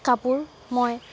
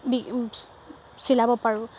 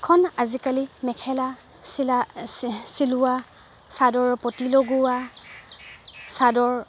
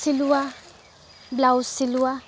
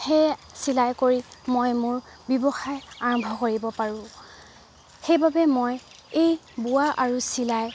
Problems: none marked